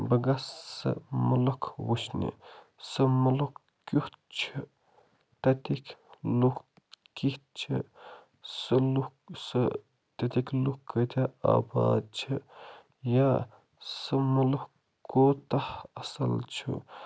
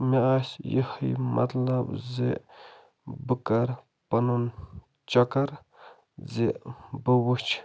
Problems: constant background noise